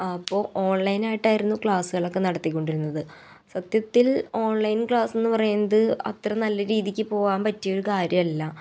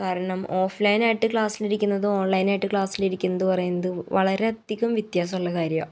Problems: none marked